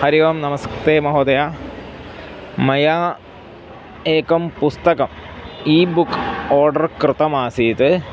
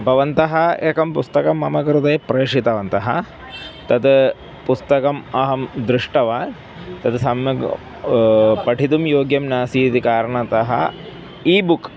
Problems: background sounds at intervals